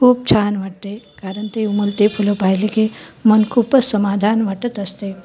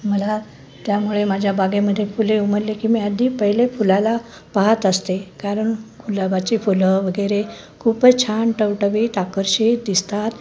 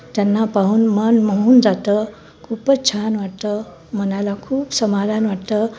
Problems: none marked